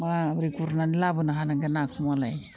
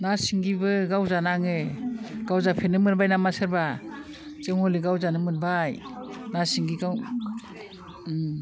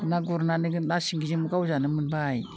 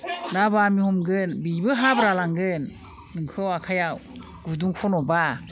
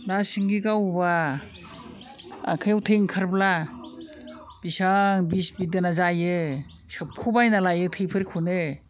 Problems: constant background noise